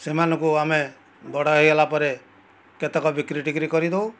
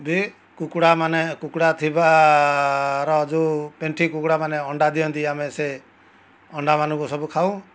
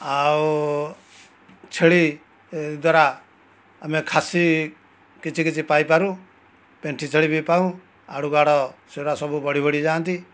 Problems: none marked